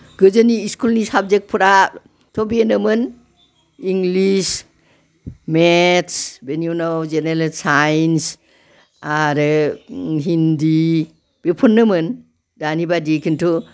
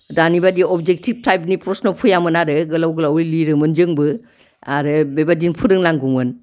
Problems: background conversations at intervals